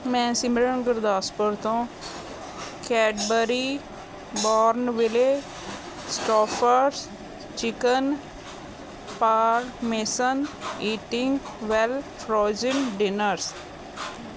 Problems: none marked